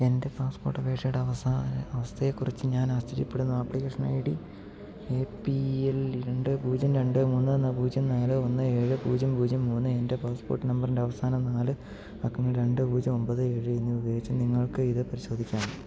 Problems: low volume